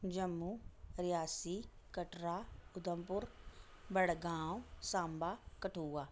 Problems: none marked